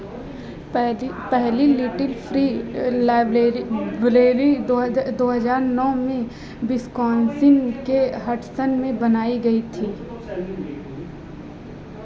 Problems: continuous background conversations